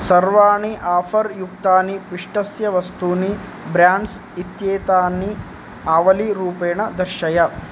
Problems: none marked